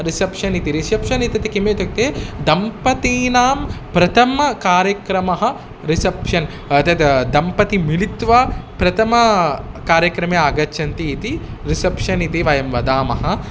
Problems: none marked